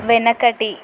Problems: constant background noise, background conversations at intervals